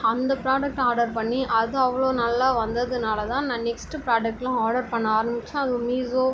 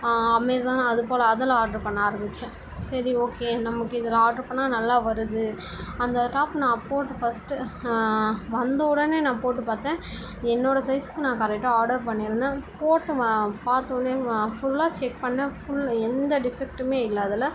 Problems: constant background noise